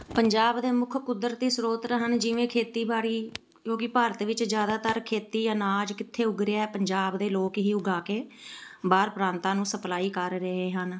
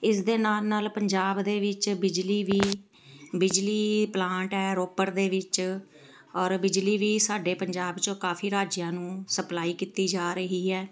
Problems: background sounds at intervals